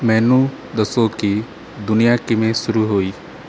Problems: none marked